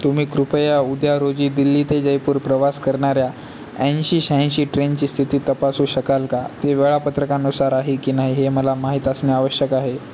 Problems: constant background noise